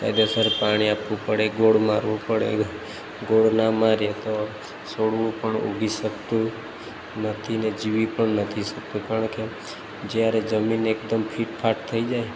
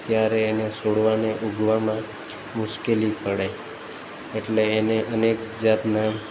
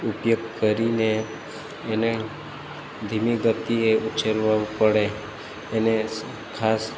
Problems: constant background noise